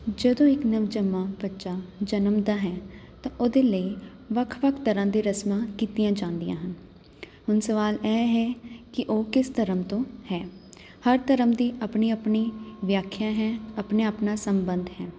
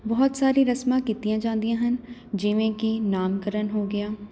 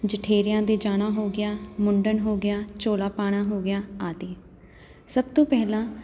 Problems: constant background noise